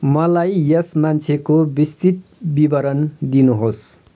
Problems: none marked